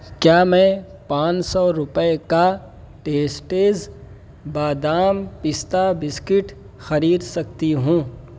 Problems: constant background noise